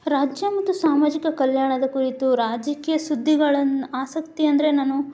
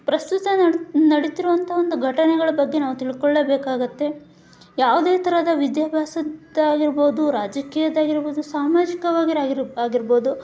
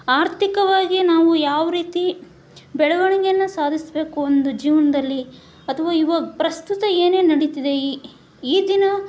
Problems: background sounds at intervals